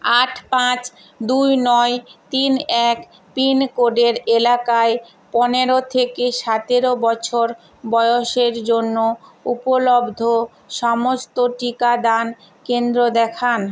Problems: none marked